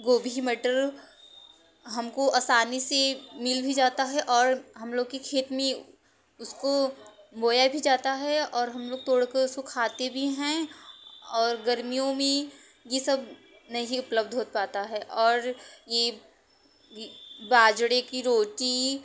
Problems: background sounds at intervals